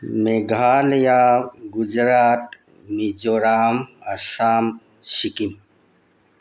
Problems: none marked